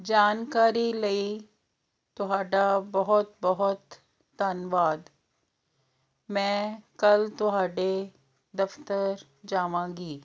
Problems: none marked